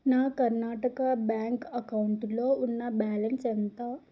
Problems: low volume